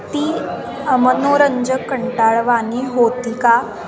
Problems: constant background noise, continuous background conversations